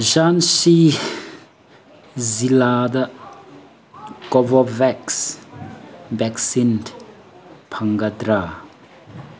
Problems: background sounds at intervals